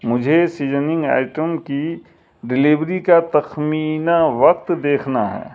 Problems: none marked